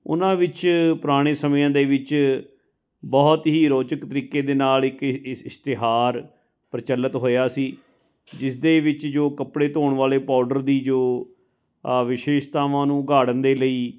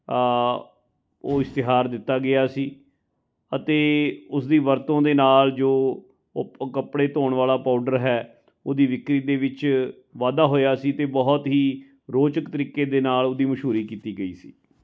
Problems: none marked